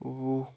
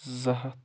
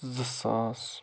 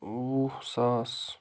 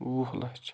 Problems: constant background noise